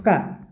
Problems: constant background noise